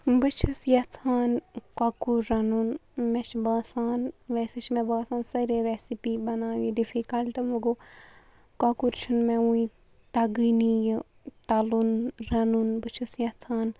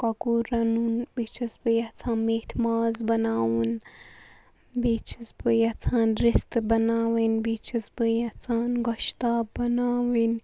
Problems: none marked